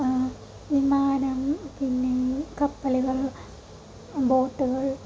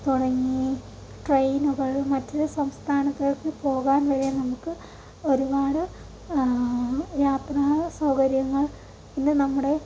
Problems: constant background noise, low volume